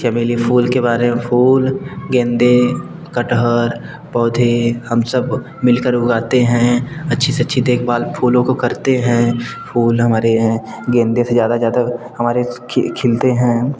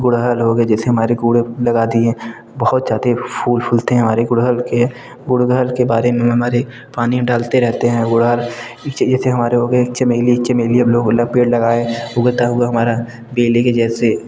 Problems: constant background noise, background conversations at intervals